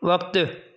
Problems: none marked